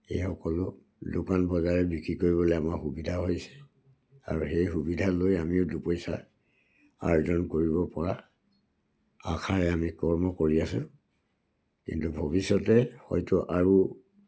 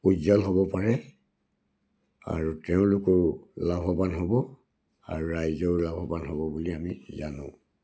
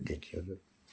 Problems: none marked